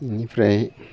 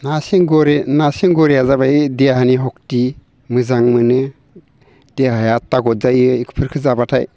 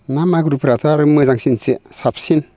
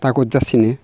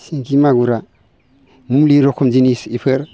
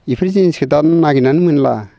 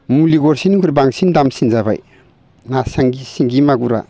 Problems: constant background noise